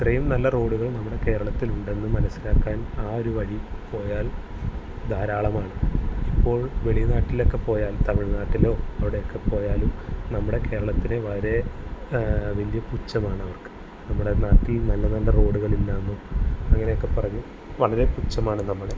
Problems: constant background noise